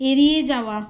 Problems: constant background noise